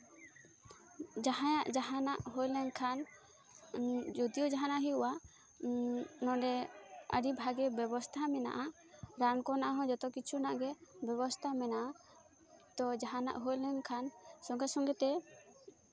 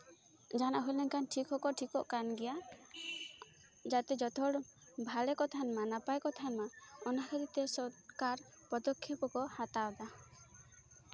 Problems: background sounds at intervals